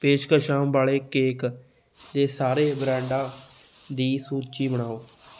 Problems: background sounds at intervals, background conversations at intervals